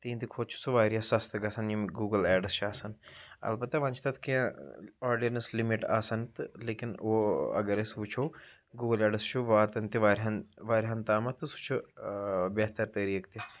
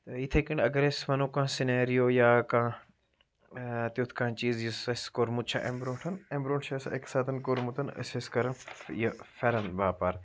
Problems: background sounds at intervals